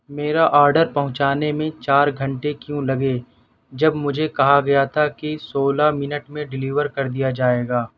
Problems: none marked